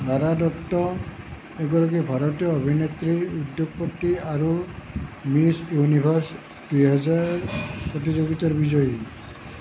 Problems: constant background noise